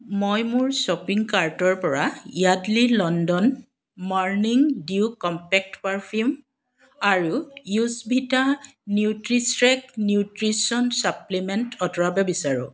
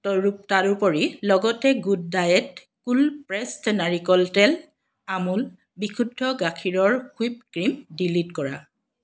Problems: background sounds at intervals